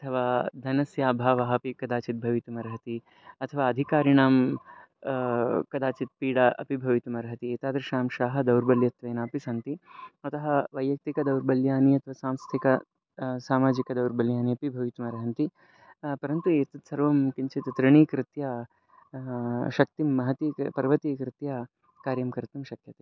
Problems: background sounds at intervals